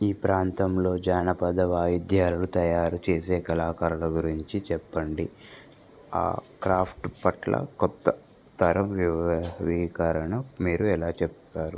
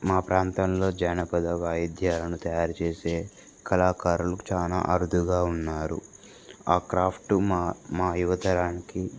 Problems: constant background noise